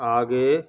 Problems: constant background noise